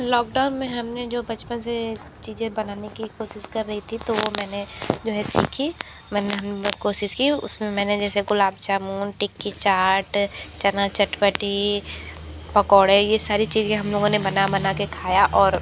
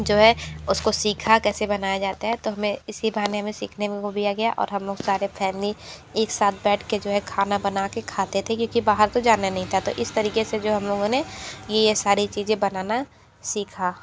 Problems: none marked